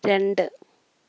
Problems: none marked